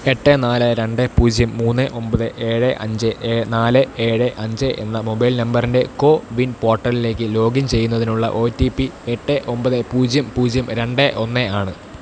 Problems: constant background noise